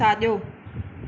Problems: none marked